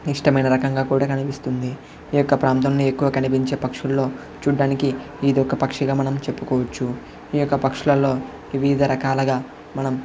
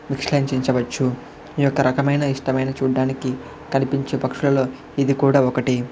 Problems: constant background noise, background conversations at intervals